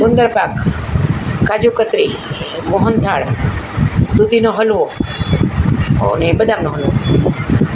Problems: none marked